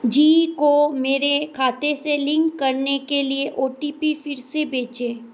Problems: constant background noise